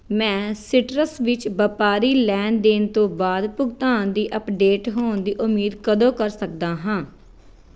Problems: background sounds at intervals